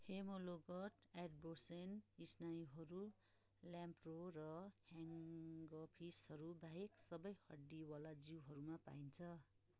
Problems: background conversations at intervals